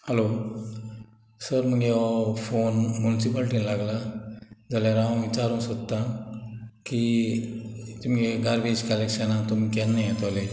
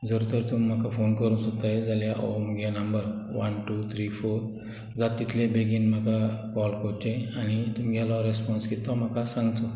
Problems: none marked